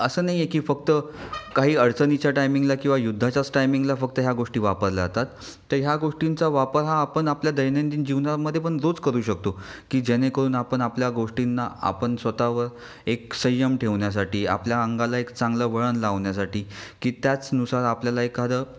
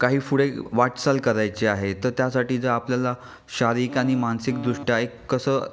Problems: none marked